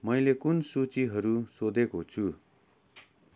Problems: none marked